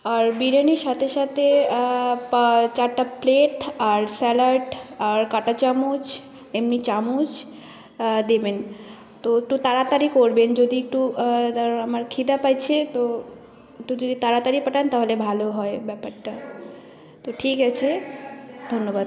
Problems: constant background noise, continuous background conversations